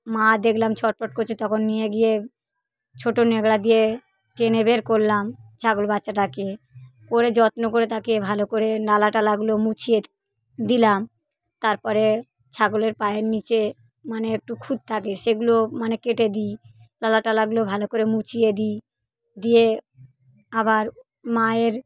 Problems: none marked